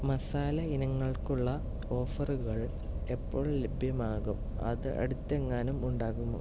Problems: background sounds at intervals, low volume